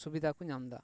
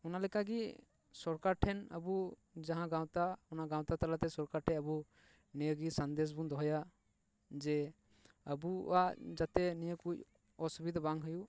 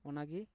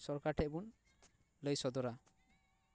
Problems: none marked